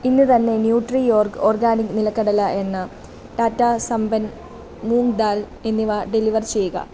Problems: none marked